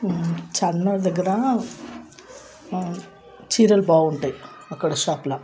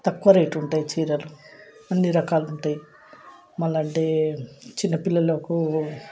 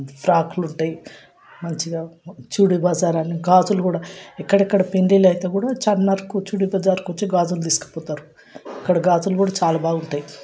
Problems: none marked